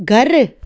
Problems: none marked